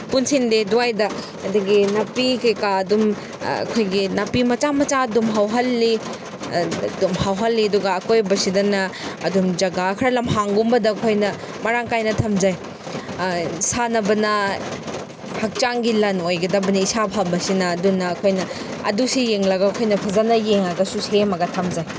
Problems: background sounds at intervals